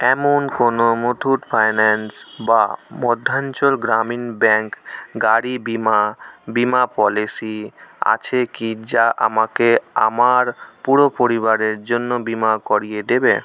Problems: constant background noise